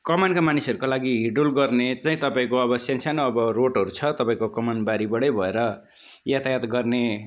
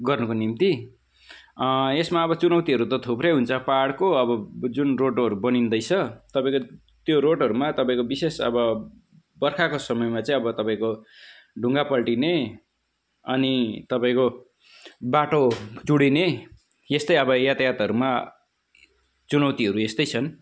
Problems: none marked